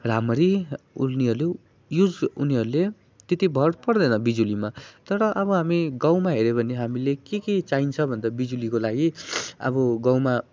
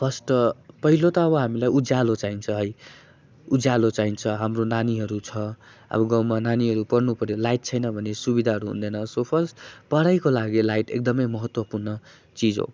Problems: none marked